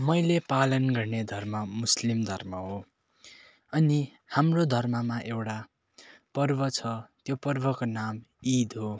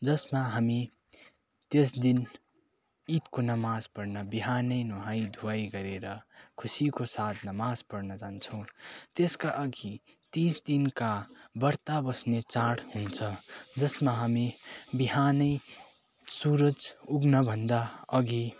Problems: constant background noise